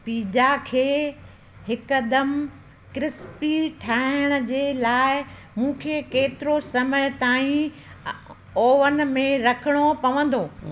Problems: constant background noise, echo